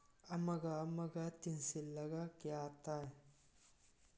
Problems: none marked